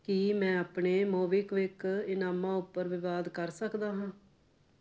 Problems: none marked